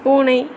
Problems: constant background noise